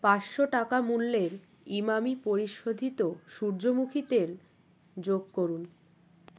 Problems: background sounds at intervals